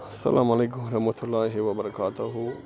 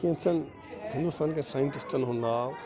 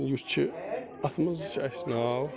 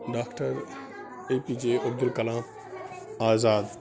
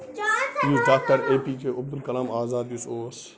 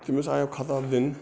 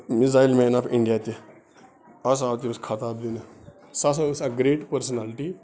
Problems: background sounds at intervals, continuous background conversations